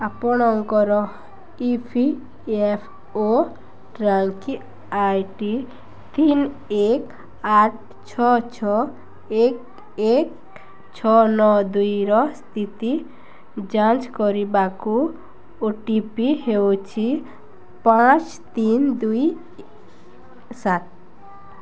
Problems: constant background noise